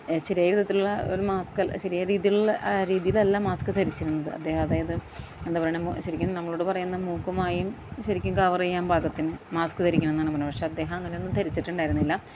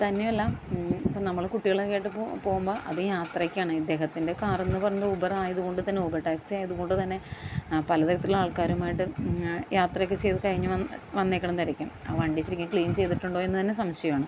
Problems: background sounds at intervals, low volume